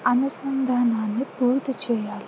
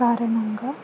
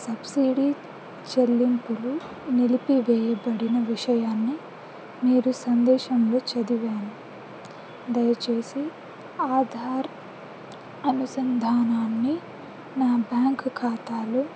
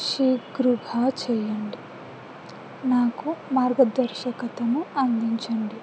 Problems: constant background noise